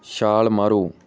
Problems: none marked